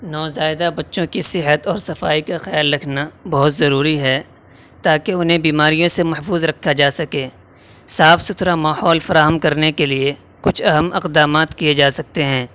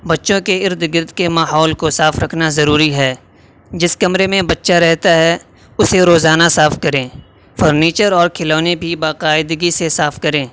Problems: constant background noise